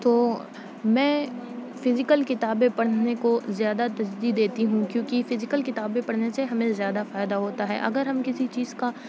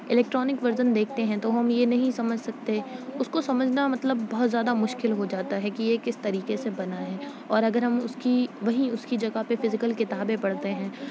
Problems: none marked